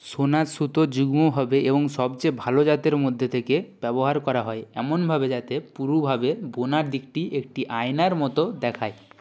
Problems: background conversations at intervals